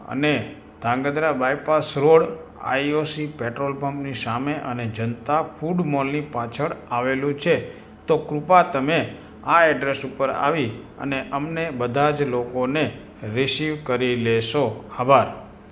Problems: constant background noise